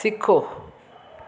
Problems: constant background noise, echo